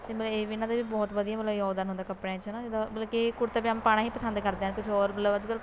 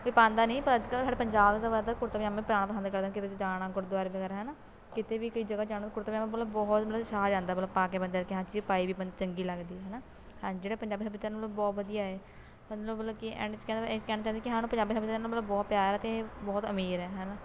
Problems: constant background noise